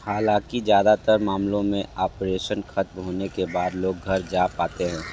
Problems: background sounds at intervals